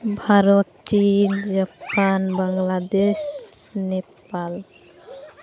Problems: constant background noise, continuous background conversations